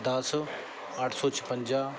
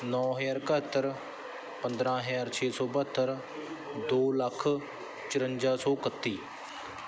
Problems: background sounds at intervals